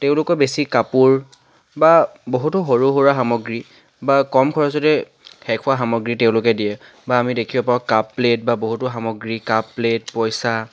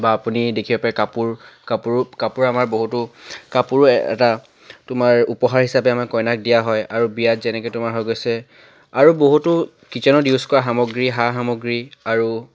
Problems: none marked